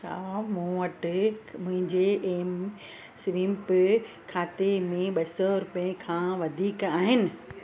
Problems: constant background noise